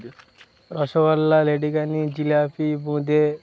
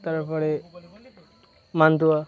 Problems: continuous background conversations